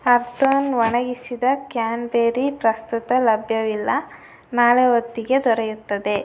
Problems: none marked